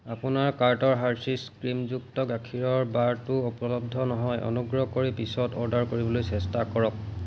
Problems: constant background noise